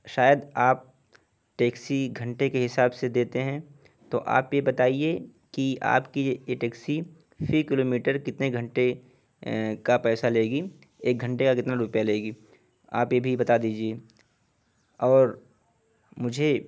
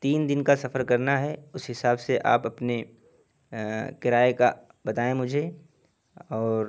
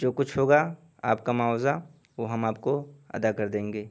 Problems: background sounds at intervals, background conversations at intervals